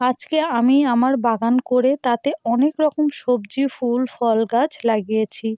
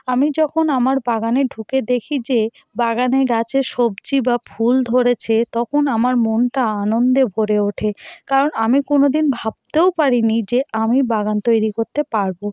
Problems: none marked